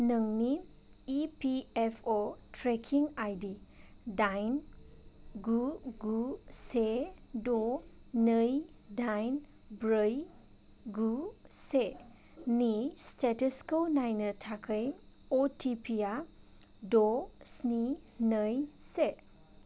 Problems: none marked